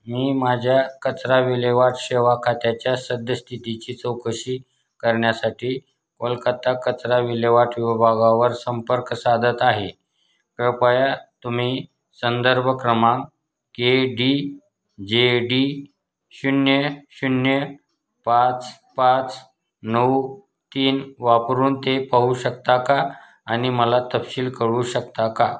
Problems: none marked